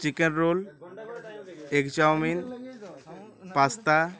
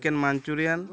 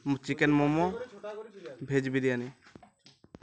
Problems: continuous background conversations